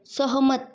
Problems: continuous background conversations